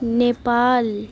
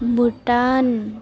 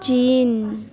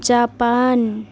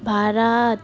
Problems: background sounds at intervals